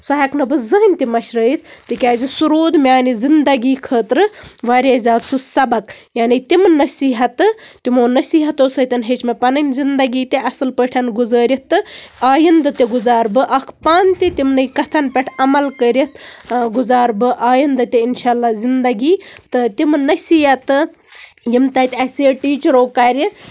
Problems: background sounds at intervals, background conversations at intervals